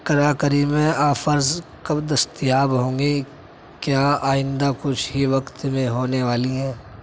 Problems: constant background noise